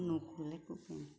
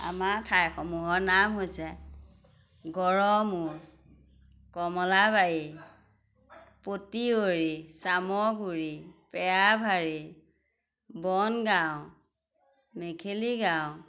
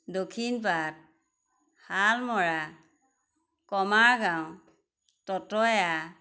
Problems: constant background noise